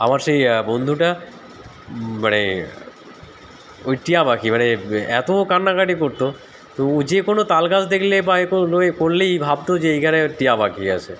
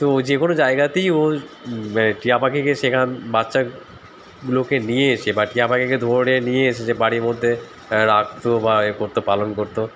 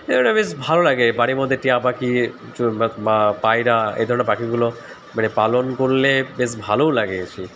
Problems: constant background noise